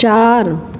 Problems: constant background noise, echo